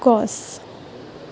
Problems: constant background noise